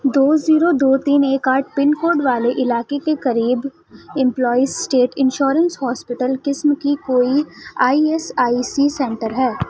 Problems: constant background noise, continuous background conversations